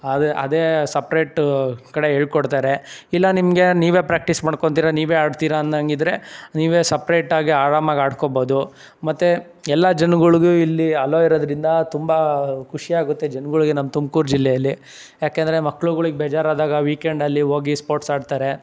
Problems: none marked